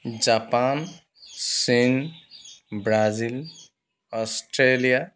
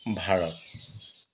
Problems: constant background noise